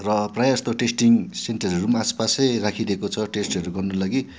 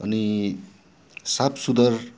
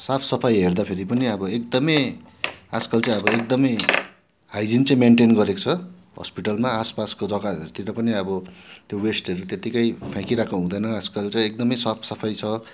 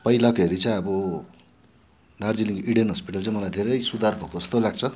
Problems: constant background noise